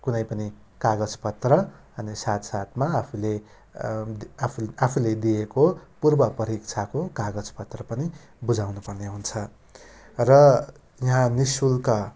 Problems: none marked